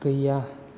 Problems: constant background noise